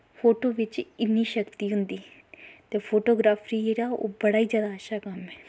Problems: background sounds at intervals